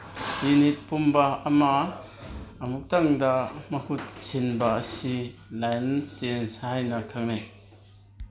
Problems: background conversations at intervals